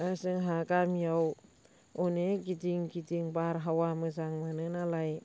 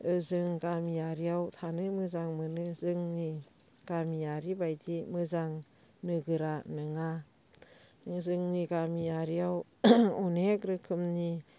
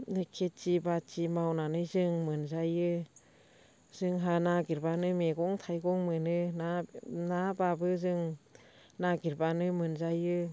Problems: constant background noise